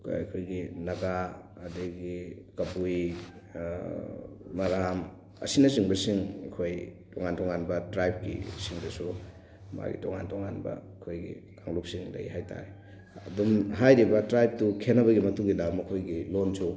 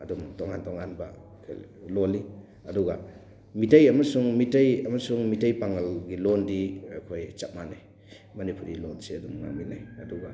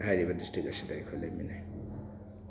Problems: background sounds at intervals, background conversations at intervals